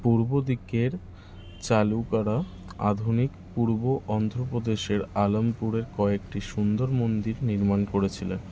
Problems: constant background noise